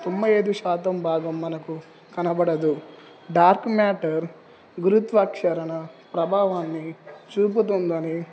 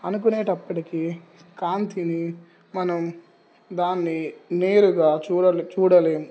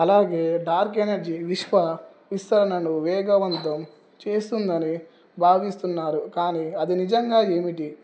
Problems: background sounds at intervals